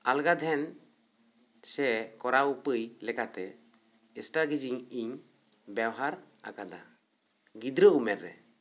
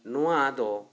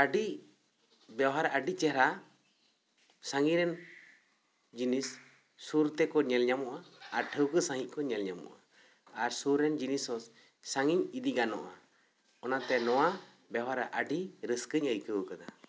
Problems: background sounds at intervals